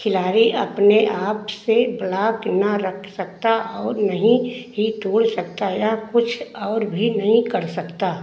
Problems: constant background noise, echo